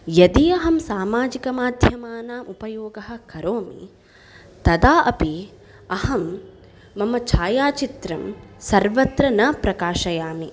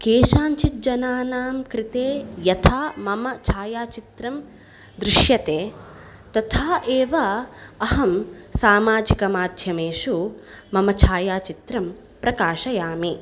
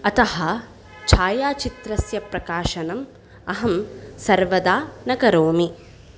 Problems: none marked